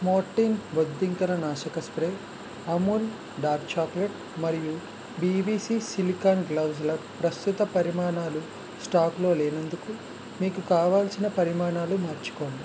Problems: constant background noise